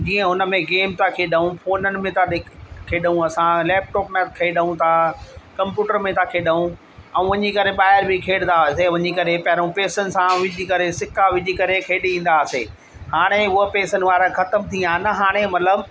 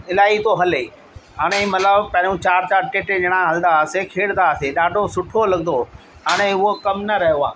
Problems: constant background noise, echo